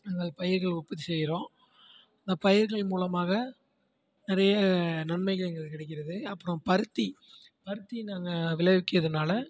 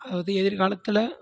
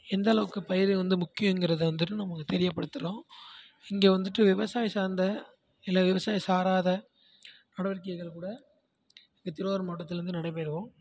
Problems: constant background noise, continuous background conversations, low volume